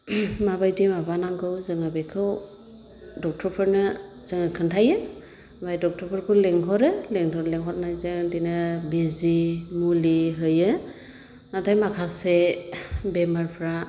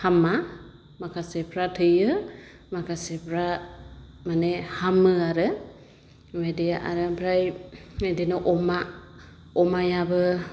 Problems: constant background noise